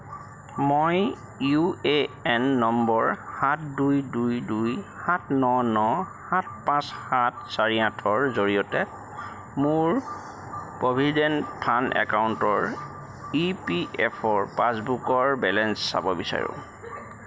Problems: none marked